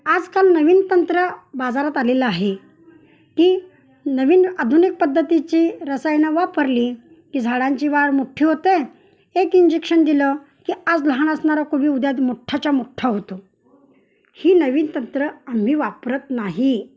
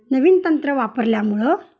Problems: background sounds at intervals, background conversations at intervals